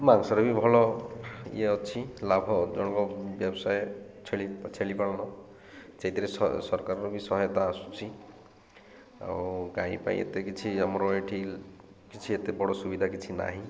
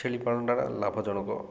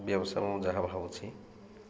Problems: constant background noise